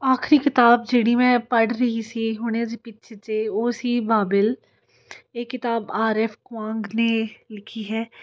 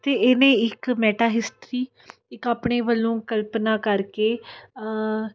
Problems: none marked